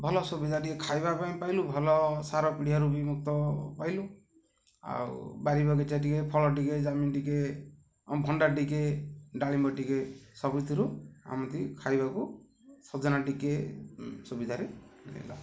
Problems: none marked